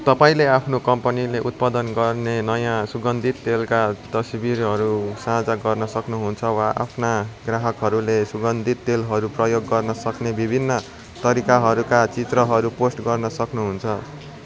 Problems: constant background noise